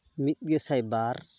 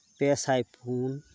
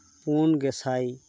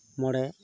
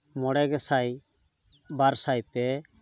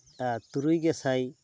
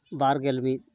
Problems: background sounds at intervals